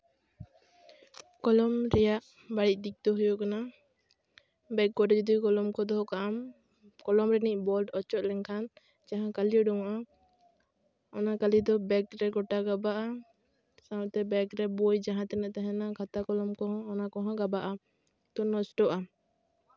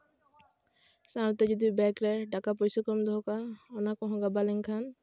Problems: background sounds at intervals